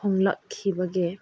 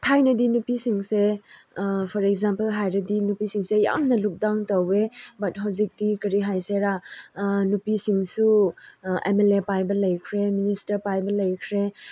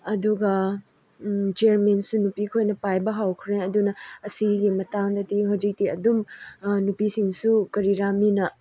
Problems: none marked